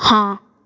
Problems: none marked